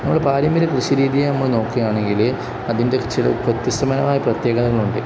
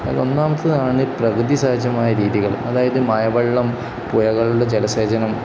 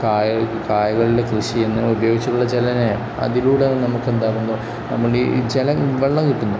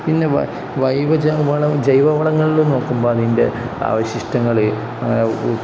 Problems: none marked